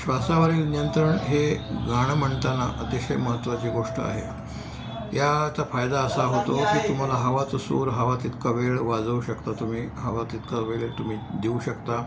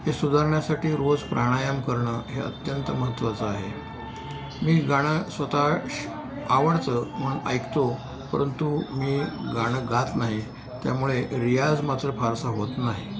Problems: constant background noise, continuous background conversations